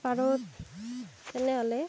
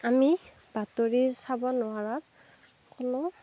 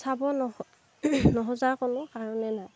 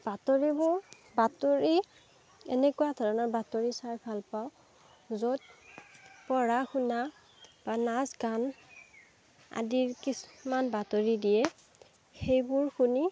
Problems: background sounds at intervals